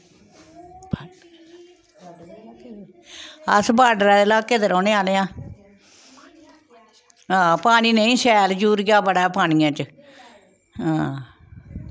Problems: background sounds at intervals, background conversations at intervals